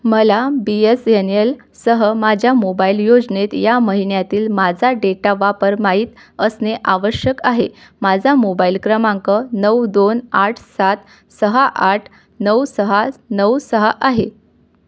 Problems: none marked